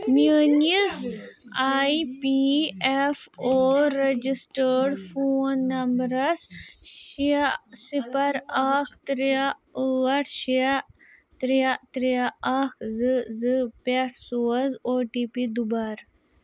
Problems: background conversations at intervals